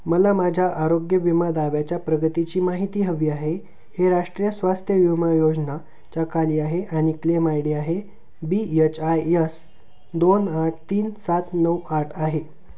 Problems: constant background noise